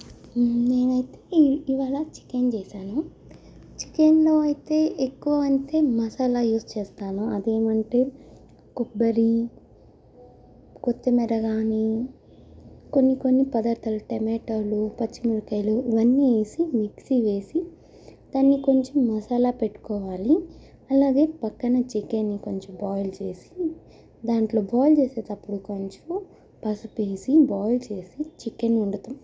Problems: low volume